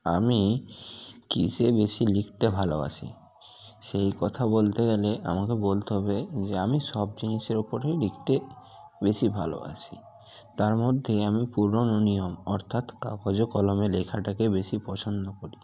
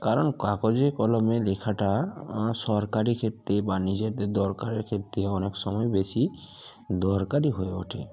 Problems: constant background noise